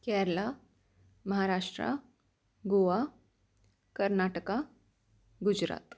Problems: constant background noise